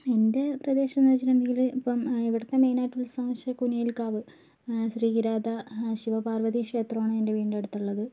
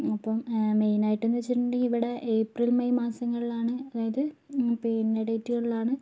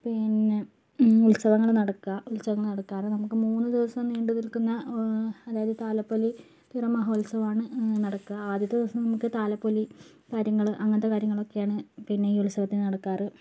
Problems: none marked